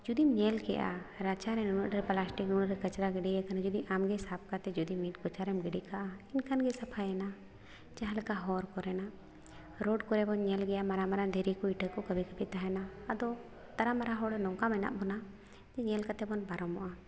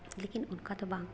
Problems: none marked